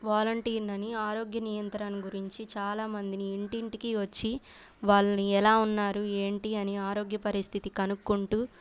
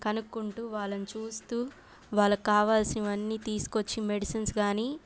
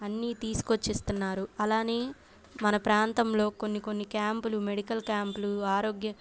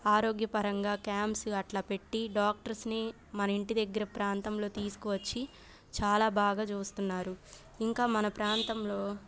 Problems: background sounds at intervals